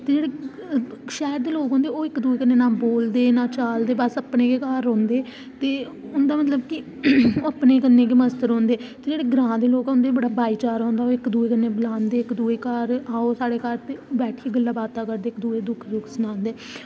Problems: constant background noise